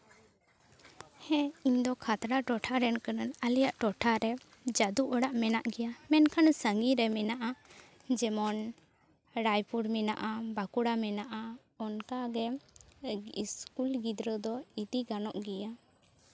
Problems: background sounds at intervals, background conversations at intervals